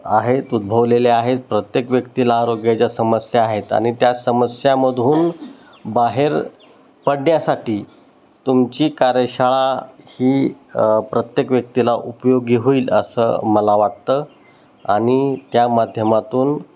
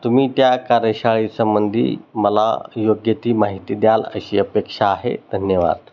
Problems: none marked